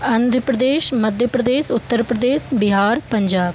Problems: constant background noise